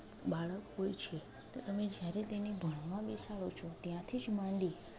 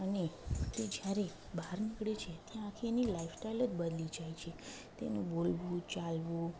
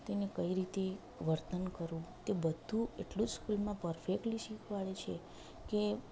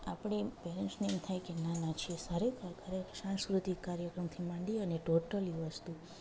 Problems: none marked